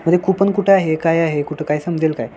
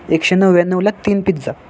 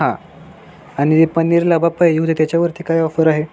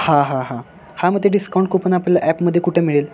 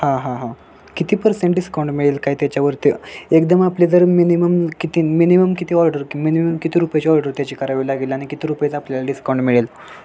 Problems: background sounds at intervals